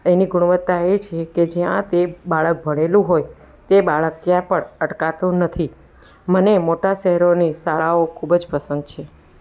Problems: none marked